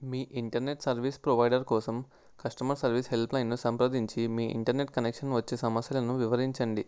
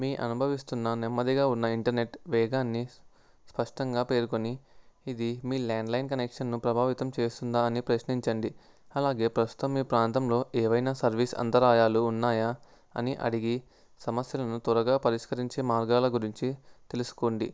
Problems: none marked